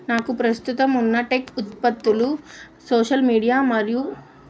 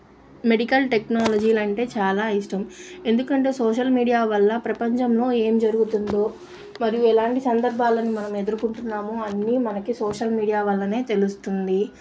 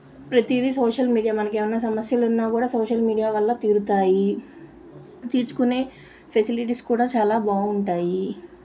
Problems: constant background noise